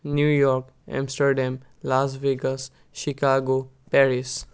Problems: none marked